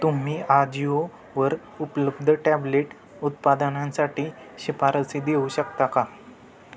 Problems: constant background noise, background conversations at intervals